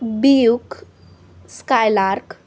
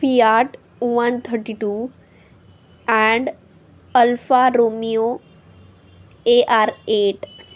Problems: constant background noise, background conversations at intervals